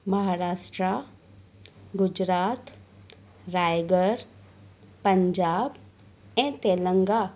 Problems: none marked